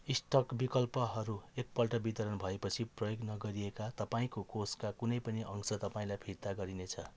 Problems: background sounds at intervals